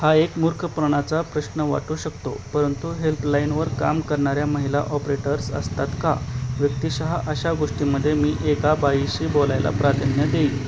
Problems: constant background noise